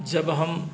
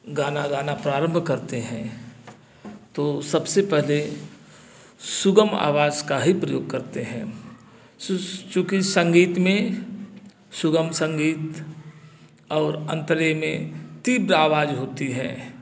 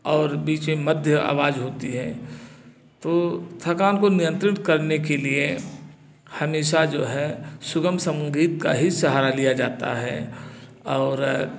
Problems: constant background noise